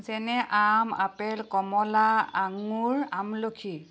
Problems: none marked